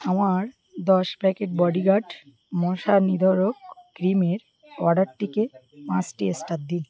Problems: none marked